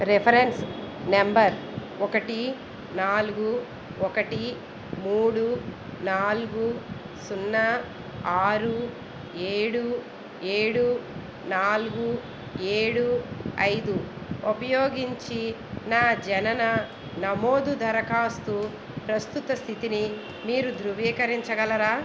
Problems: constant background noise